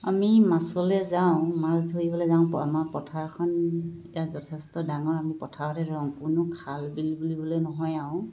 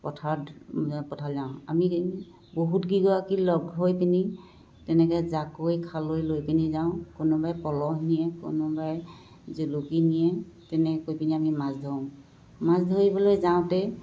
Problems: constant background noise